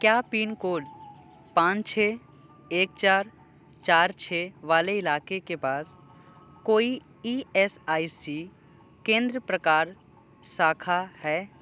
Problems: background sounds at intervals